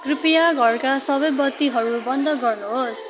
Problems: continuous background conversations